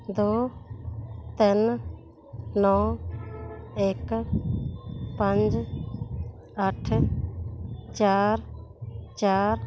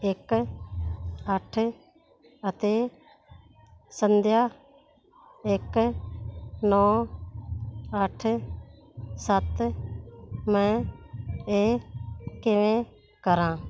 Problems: constant background noise